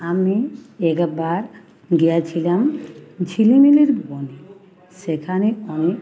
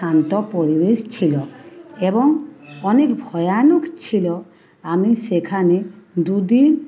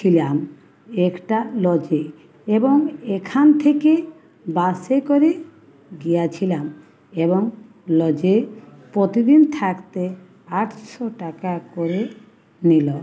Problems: constant background noise, continuous background conversations